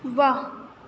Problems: none marked